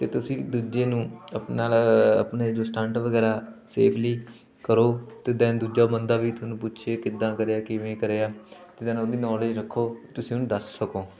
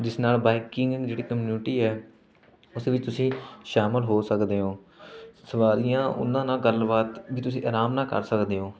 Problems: background sounds at intervals, continuous background conversations